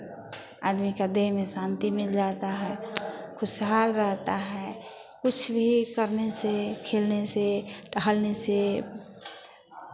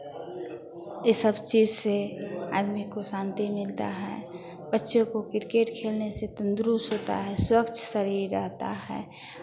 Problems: constant background noise